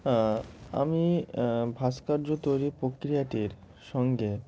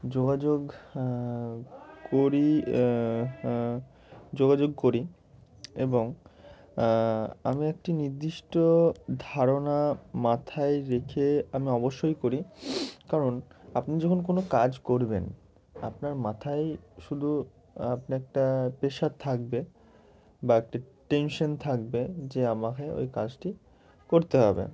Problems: none marked